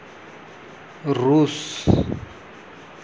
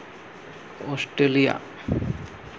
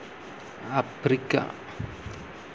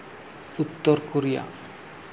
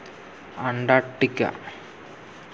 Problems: constant background noise